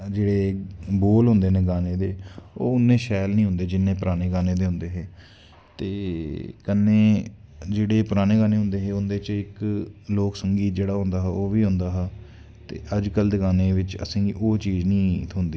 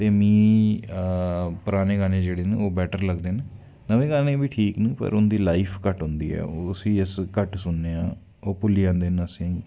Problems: constant background noise